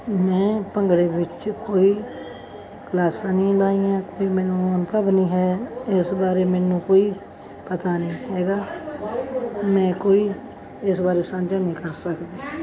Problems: none marked